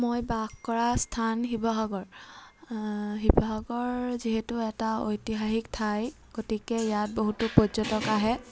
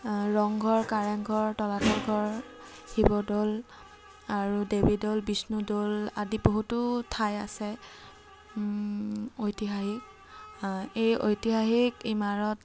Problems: constant background noise